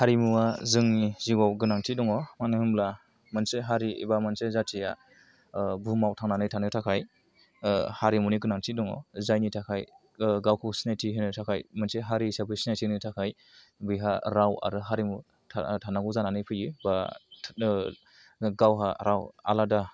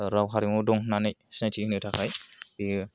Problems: none marked